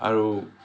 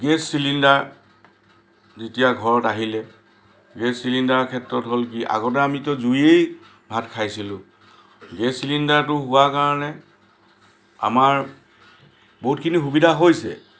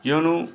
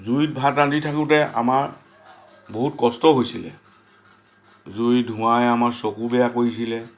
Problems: constant background noise